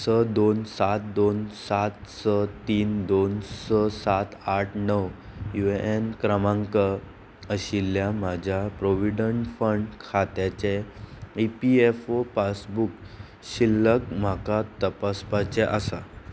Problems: constant background noise